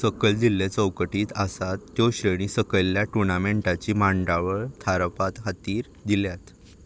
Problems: none marked